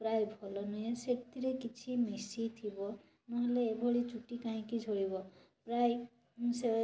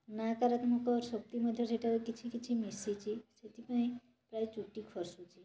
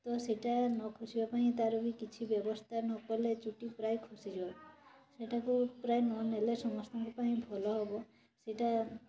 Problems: constant background noise, continuous background conversations